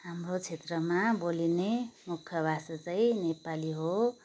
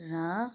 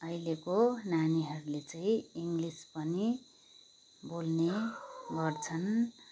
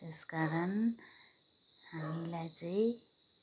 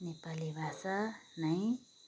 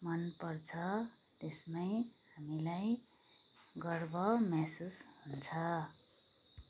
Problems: constant background noise